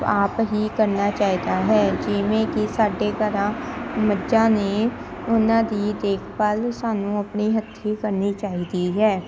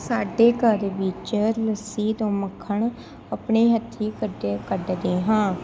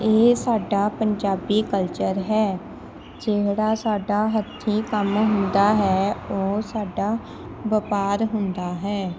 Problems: none marked